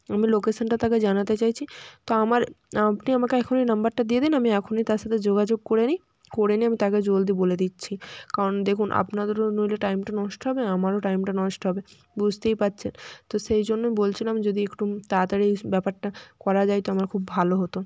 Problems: background sounds at intervals, background conversations at intervals